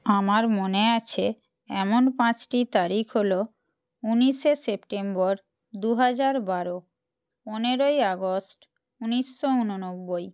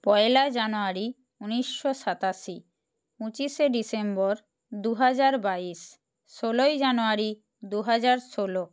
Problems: constant background noise